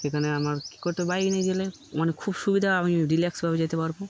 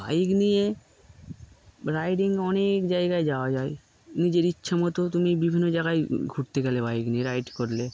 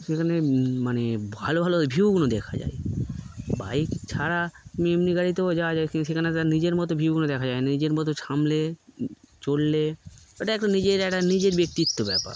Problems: none marked